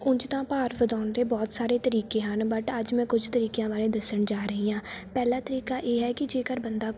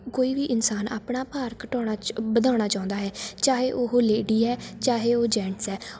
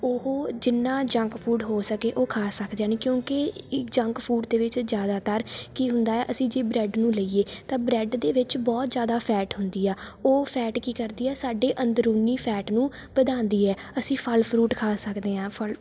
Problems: none marked